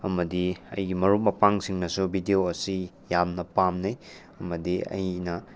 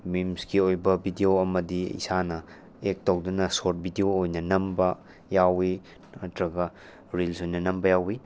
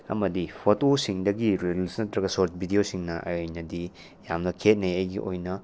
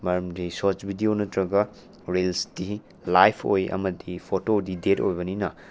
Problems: none marked